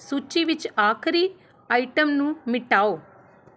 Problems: background sounds at intervals